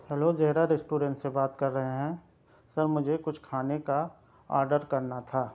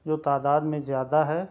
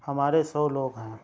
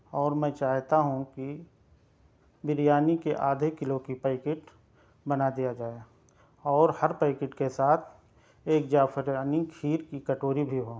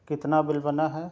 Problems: none marked